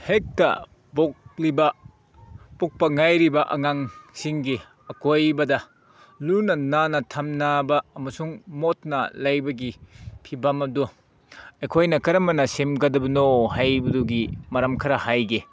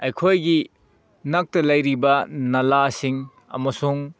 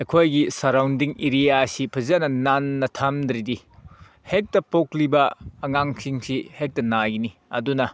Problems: background sounds at intervals